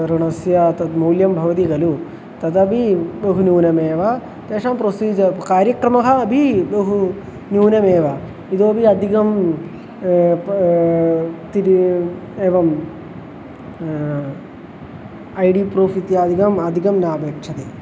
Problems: constant background noise